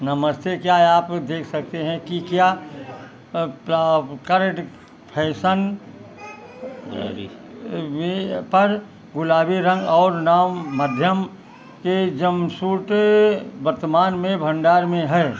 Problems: background sounds at intervals